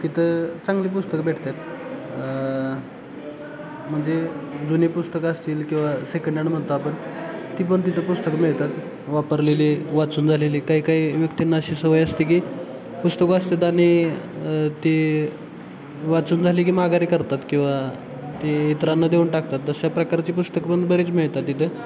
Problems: constant background noise, continuous background conversations